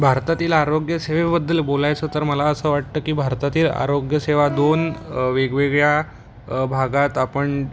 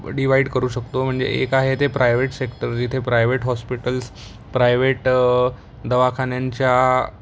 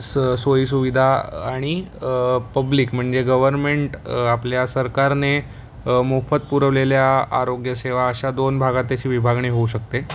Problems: constant background noise, background conversations at intervals